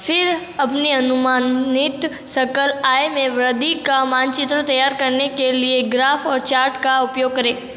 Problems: echo